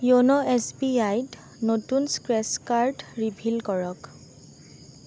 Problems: constant background noise